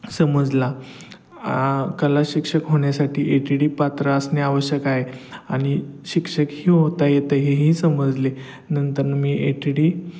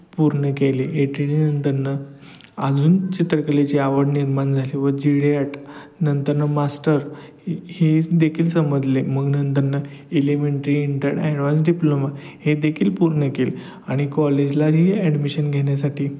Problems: background sounds at intervals